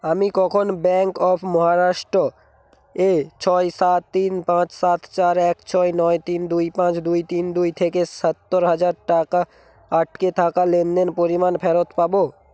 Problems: none marked